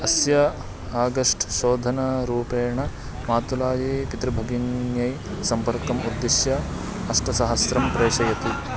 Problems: background conversations at intervals